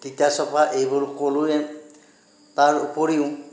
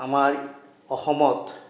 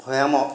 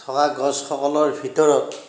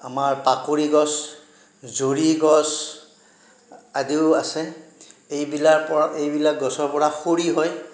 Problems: none marked